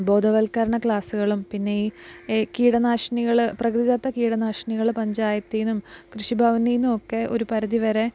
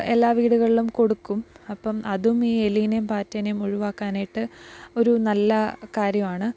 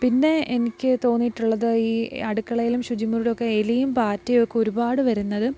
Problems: none marked